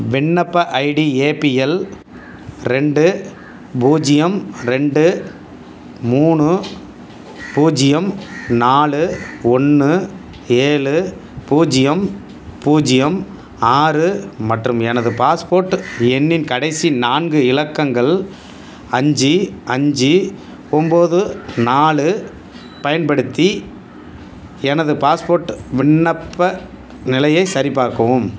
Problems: background sounds at intervals